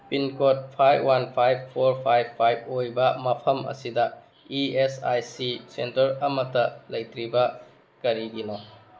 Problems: background sounds at intervals